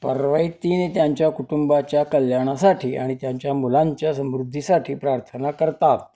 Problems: none marked